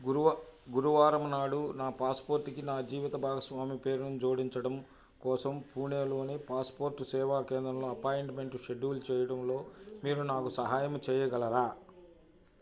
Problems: none marked